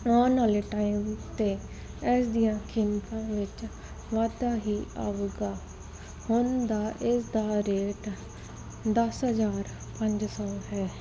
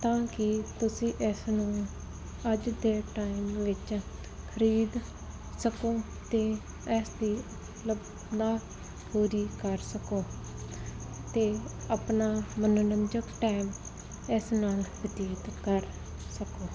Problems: background sounds at intervals